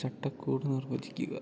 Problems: low volume